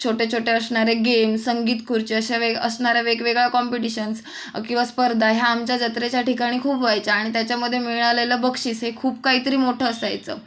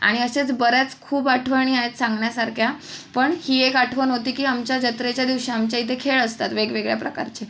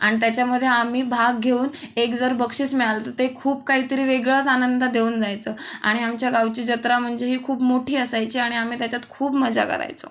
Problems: background sounds at intervals